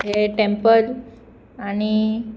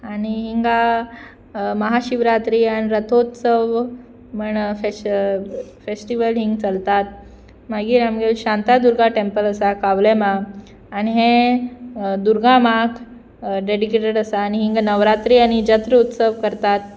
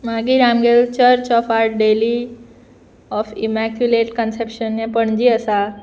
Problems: none marked